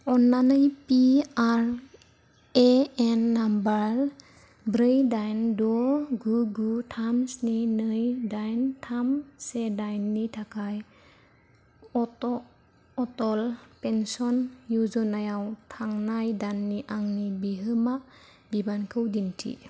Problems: low volume